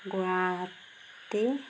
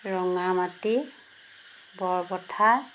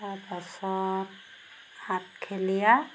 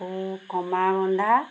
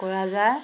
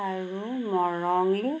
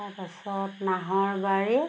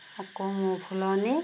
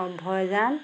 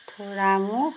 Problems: background sounds at intervals